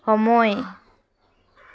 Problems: background sounds at intervals